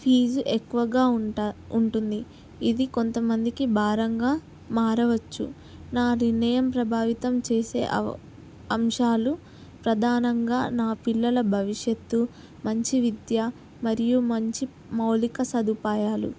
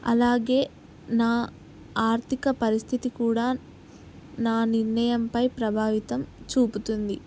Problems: constant background noise